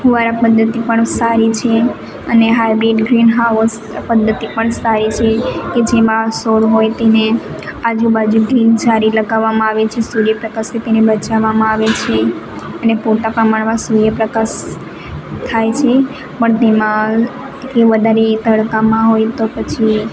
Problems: constant background noise